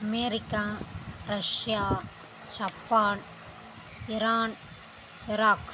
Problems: constant background noise